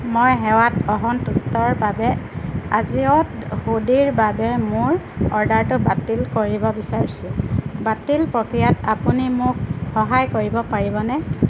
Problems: constant background noise